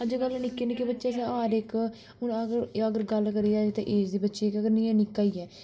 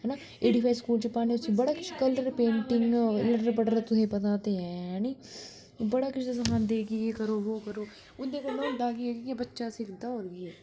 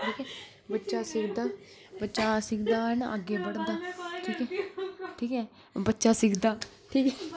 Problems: none marked